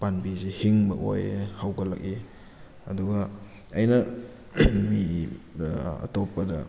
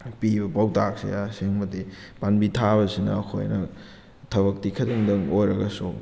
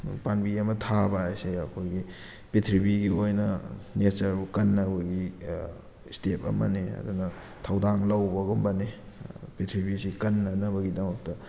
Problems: background sounds at intervals